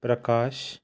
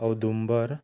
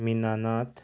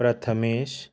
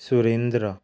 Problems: background sounds at intervals